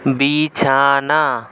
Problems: constant background noise